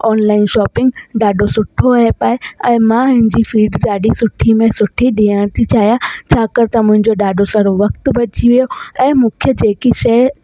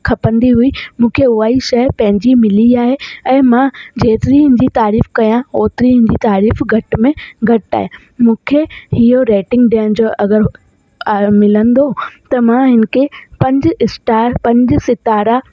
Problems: constant background noise